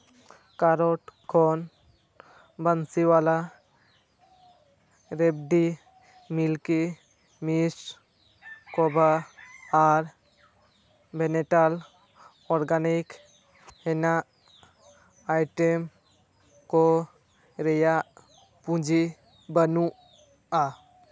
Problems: constant background noise